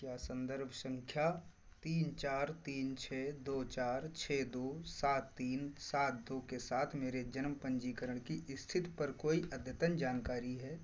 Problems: constant background noise